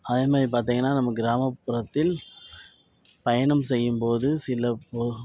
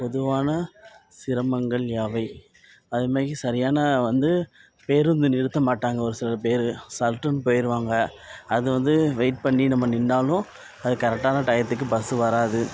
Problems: none marked